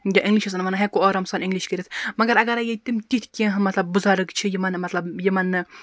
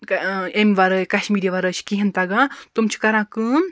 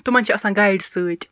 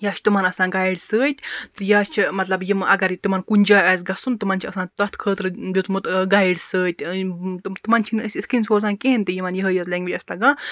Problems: none marked